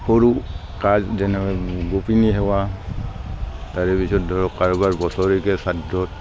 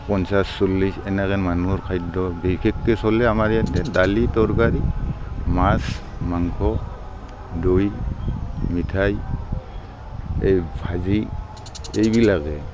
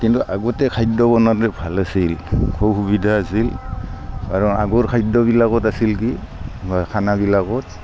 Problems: constant background noise